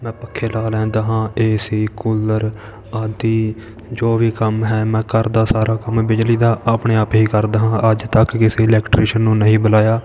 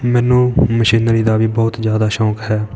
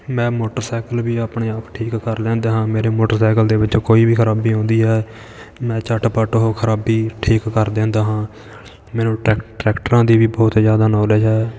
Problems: background sounds at intervals, continuous background conversations